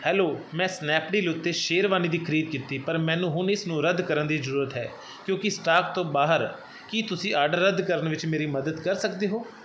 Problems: constant background noise